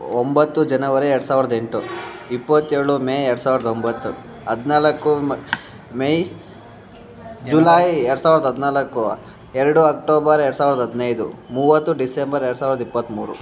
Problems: background conversations at intervals